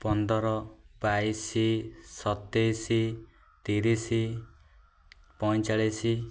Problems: none marked